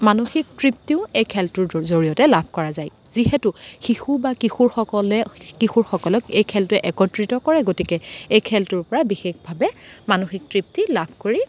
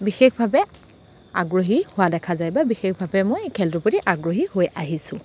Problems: constant background noise